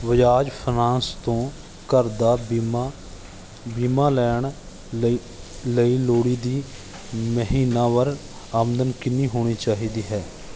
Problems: none marked